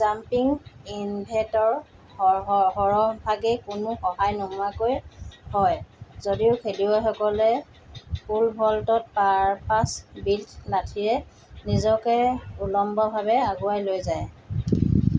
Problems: background sounds at intervals